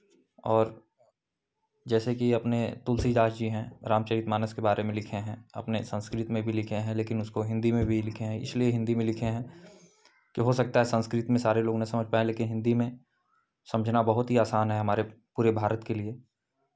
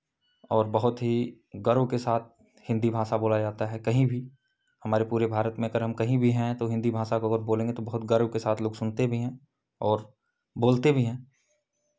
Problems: background sounds at intervals